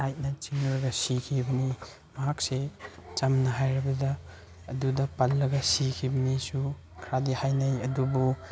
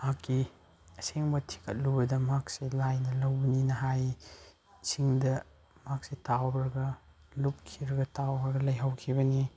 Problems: background sounds at intervals